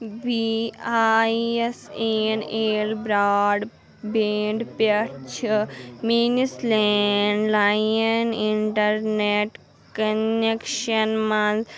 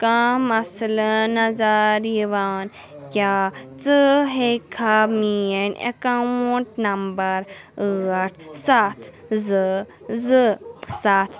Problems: none marked